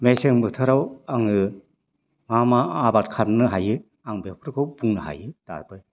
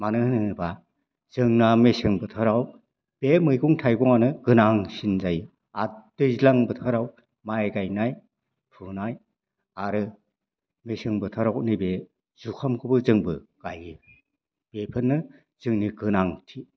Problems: low volume